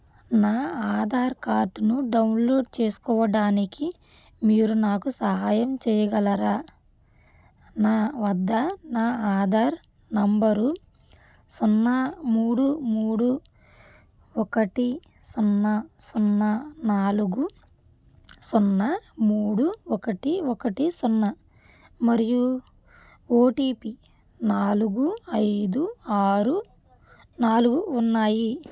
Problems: none marked